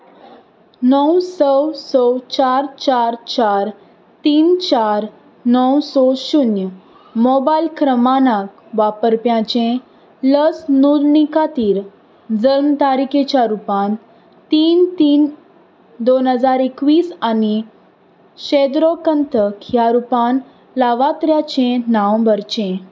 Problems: none marked